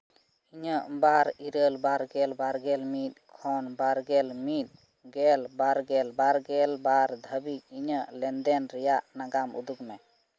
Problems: constant background noise